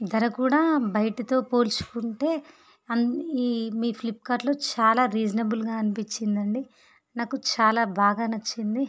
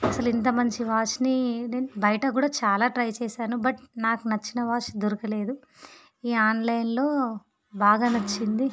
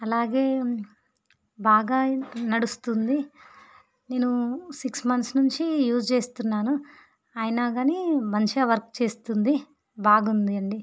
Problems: background sounds at intervals